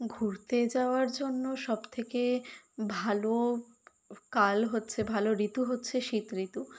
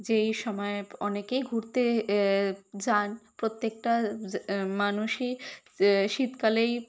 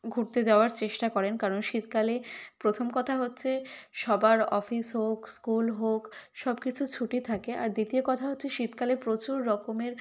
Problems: none marked